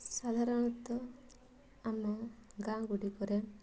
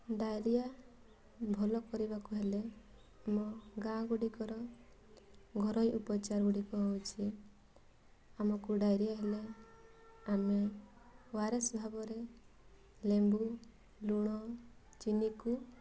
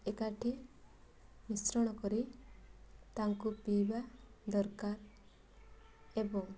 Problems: constant background noise